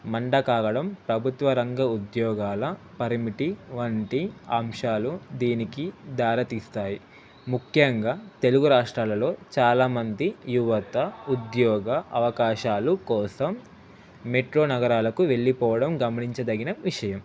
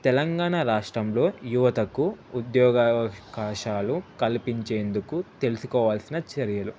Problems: constant background noise